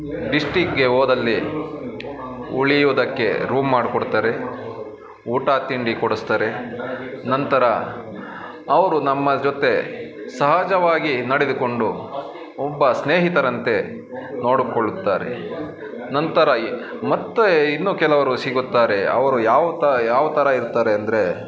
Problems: constant background noise